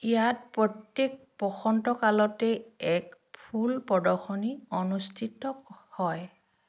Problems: none marked